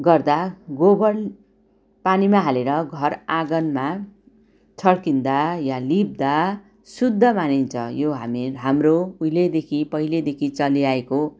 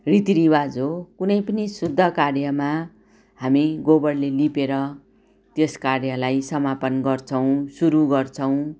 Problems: background sounds at intervals